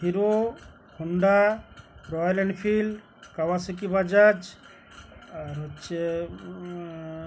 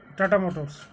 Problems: none marked